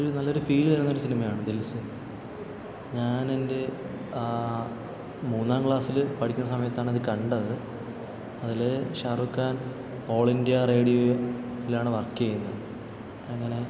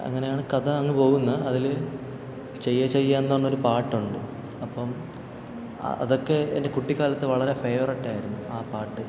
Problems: background sounds at intervals